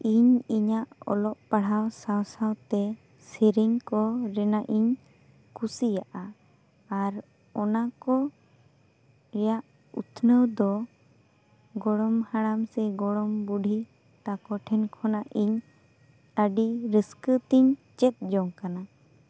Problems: none marked